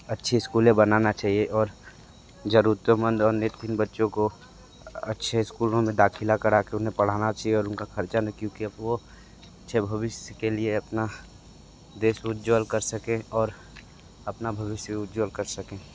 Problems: constant background noise